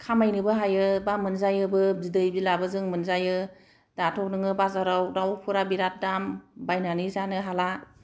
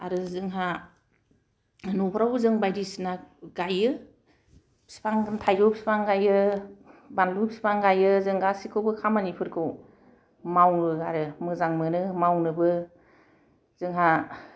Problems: none marked